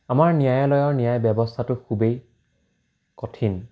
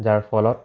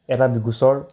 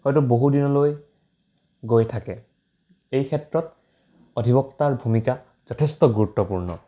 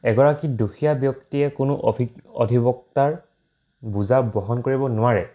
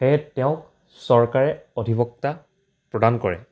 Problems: constant background noise